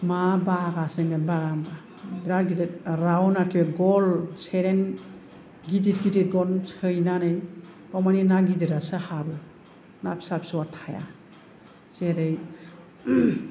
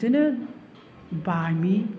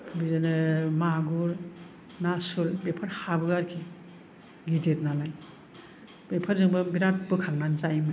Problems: none marked